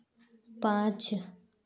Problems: constant background noise